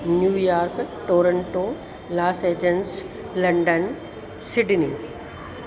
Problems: constant background noise, echo